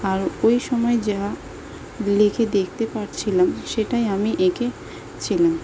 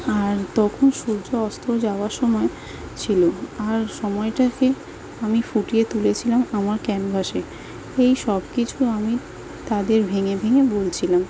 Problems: constant background noise